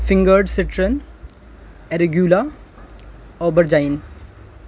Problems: constant background noise